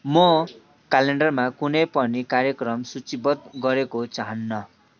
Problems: constant background noise